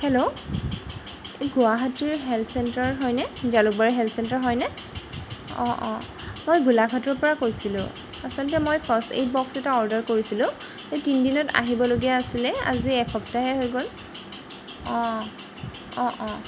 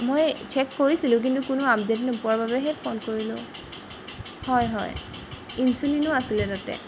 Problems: background sounds at intervals